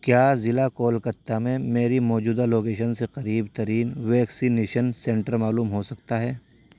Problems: none marked